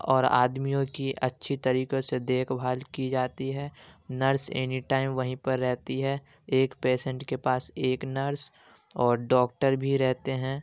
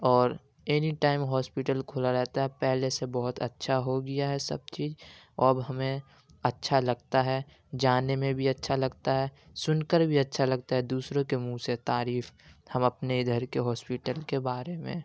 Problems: background sounds at intervals